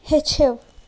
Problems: constant background noise